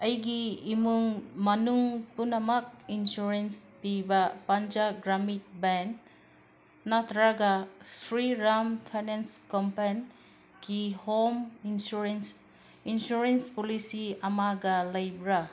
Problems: background sounds at intervals